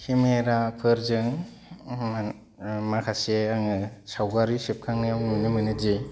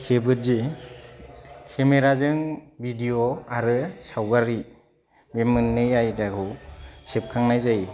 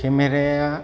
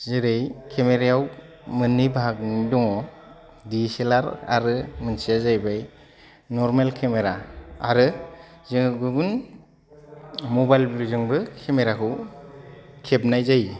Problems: low volume